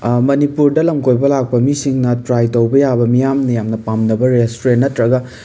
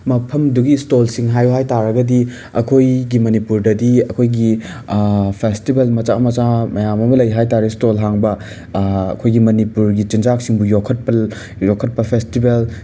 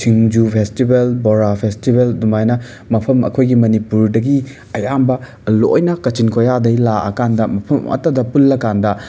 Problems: background sounds at intervals